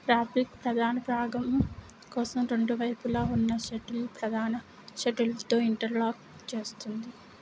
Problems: constant background noise, low volume